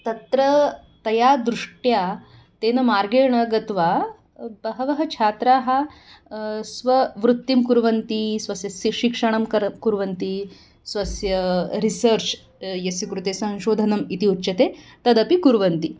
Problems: background sounds at intervals